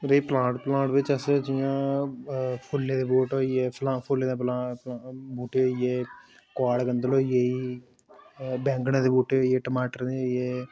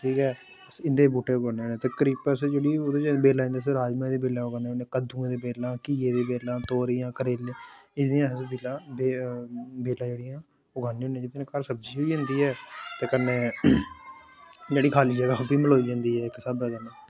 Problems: constant background noise